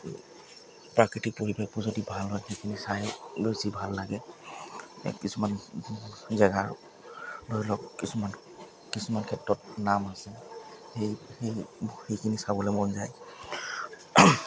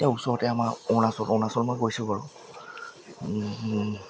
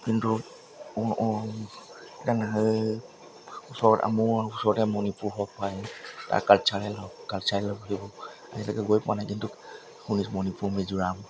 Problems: background sounds at intervals